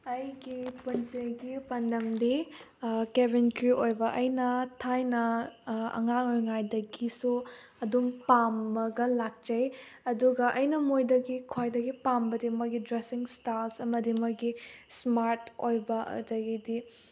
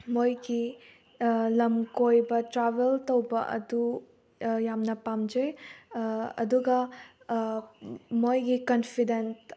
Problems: background sounds at intervals